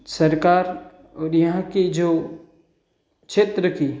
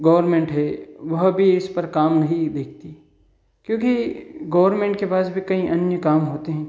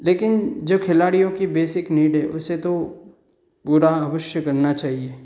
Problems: none marked